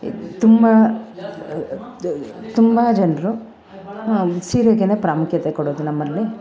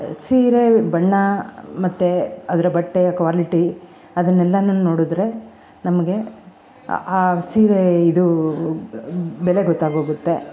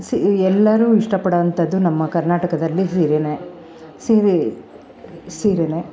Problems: none marked